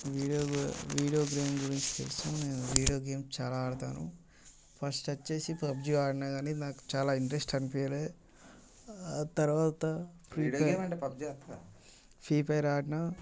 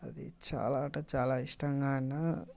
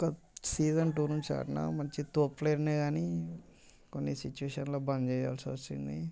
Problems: constant background noise, background conversations at intervals